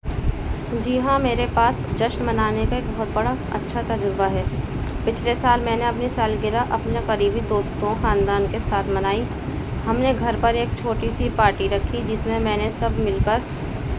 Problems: constant background noise